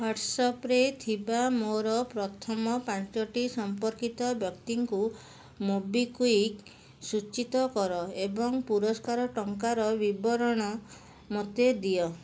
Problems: background sounds at intervals